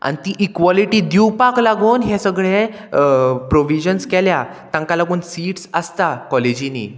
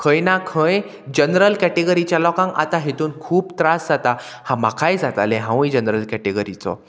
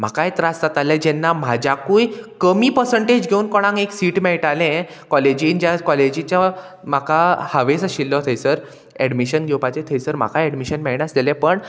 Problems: constant background noise